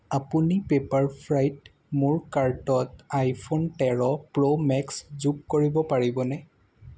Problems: background sounds at intervals